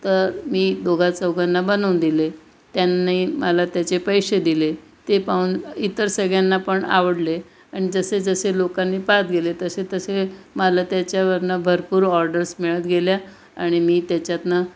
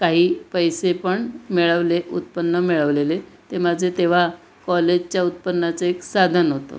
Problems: constant background noise